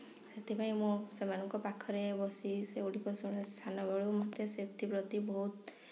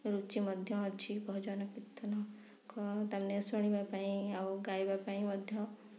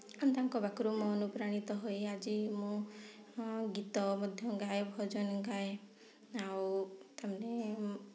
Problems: low volume